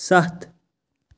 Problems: none marked